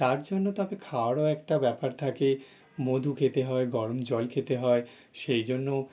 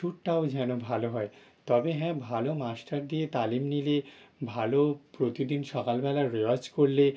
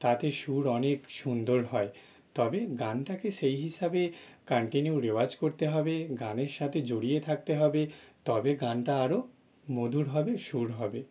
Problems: background sounds at intervals